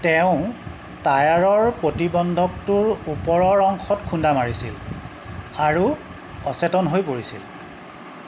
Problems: constant background noise